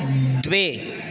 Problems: background sounds at intervals